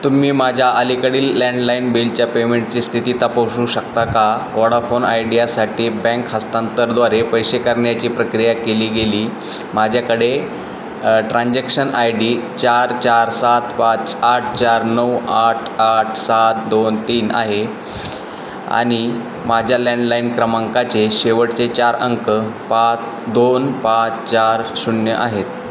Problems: constant background noise